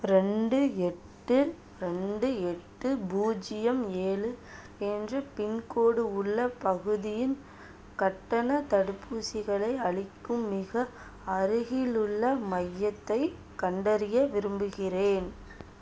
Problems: constant background noise